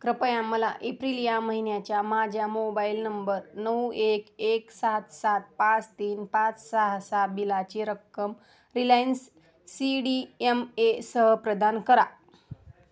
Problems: none marked